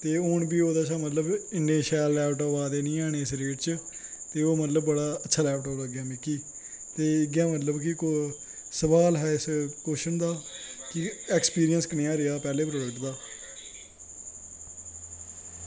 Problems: constant background noise